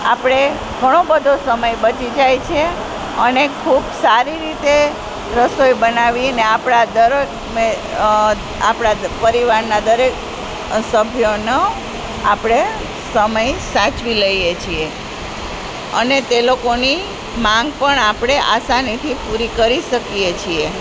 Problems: constant background noise